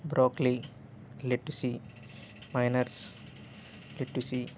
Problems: background sounds at intervals